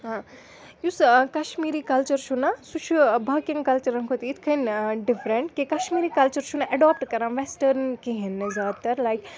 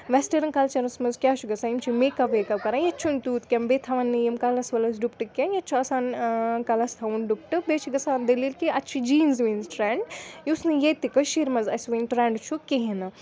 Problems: continuous background conversations